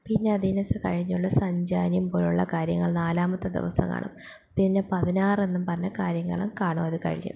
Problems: none marked